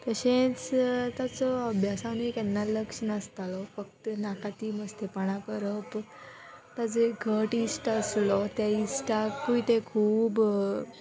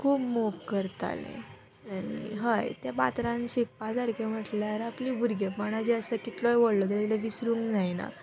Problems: background sounds at intervals